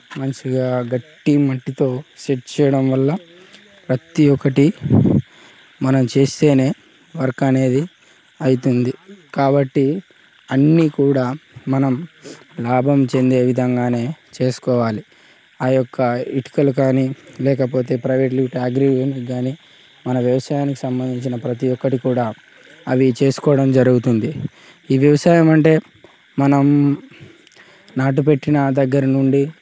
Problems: constant background noise, background conversations at intervals